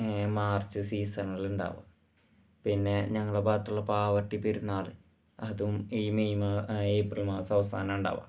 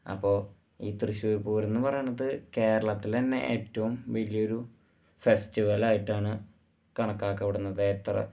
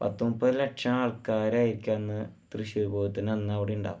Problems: low volume